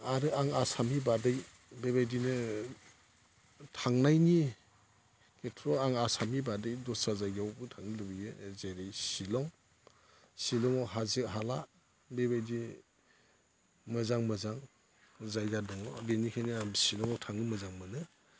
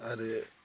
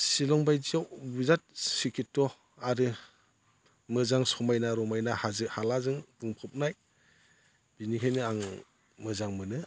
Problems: none marked